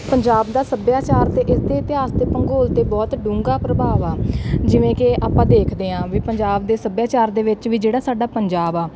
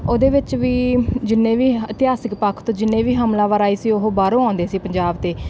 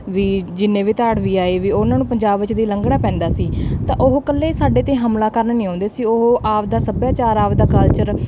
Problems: background sounds at intervals